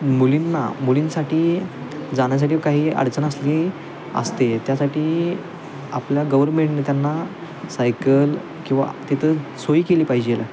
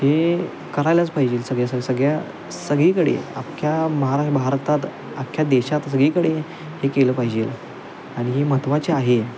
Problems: constant background noise, continuous background conversations